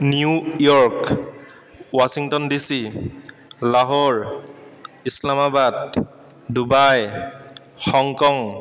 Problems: constant background noise, echo